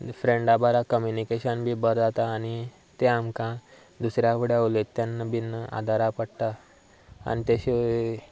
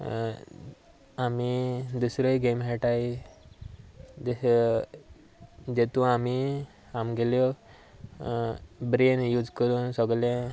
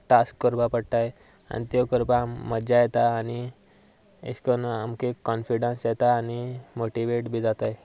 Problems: none marked